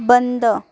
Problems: background sounds at intervals